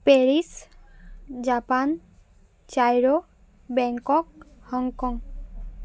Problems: none marked